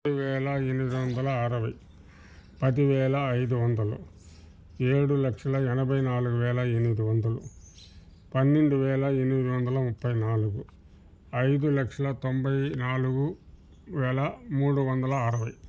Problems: background sounds at intervals